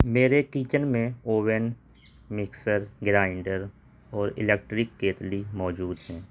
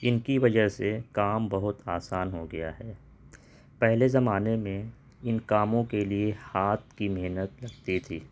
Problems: none marked